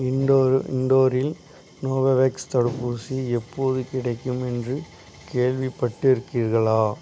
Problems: none marked